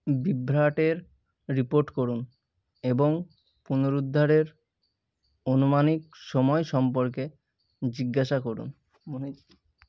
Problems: none marked